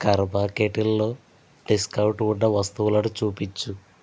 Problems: constant background noise